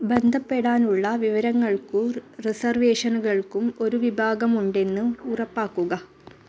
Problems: none marked